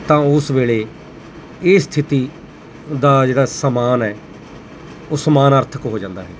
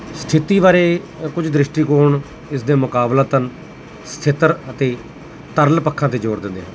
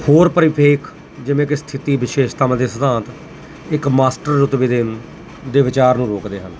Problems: constant background noise